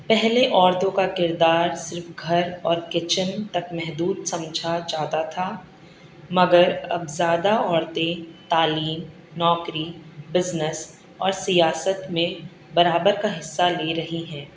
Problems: none marked